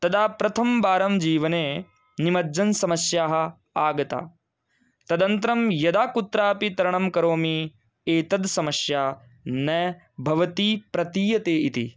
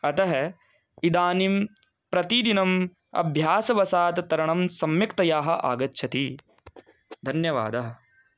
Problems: none marked